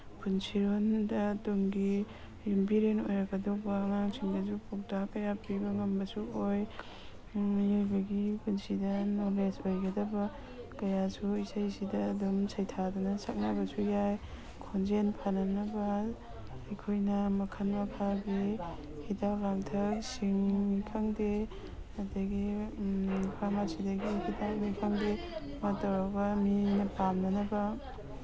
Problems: background sounds at intervals